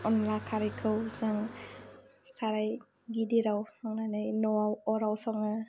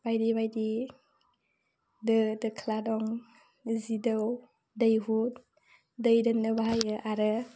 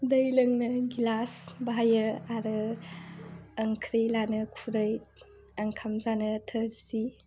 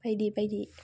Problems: constant background noise